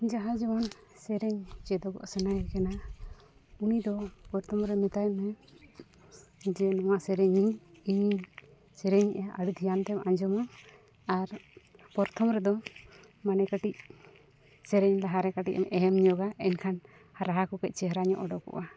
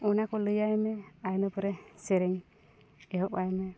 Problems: background sounds at intervals